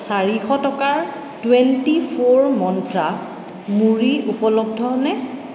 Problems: constant background noise, echo